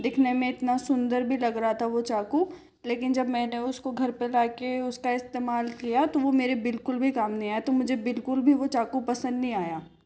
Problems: background sounds at intervals